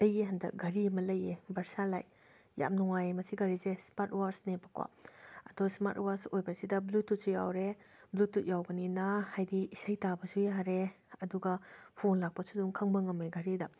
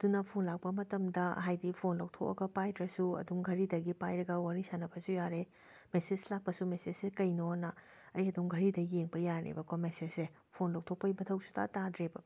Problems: none marked